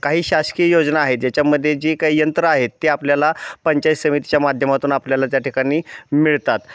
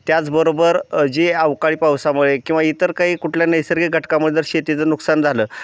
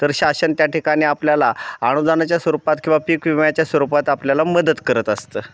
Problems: none marked